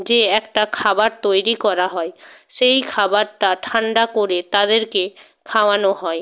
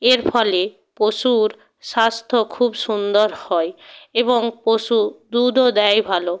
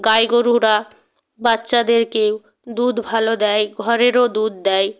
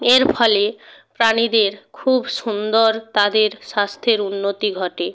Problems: background sounds at intervals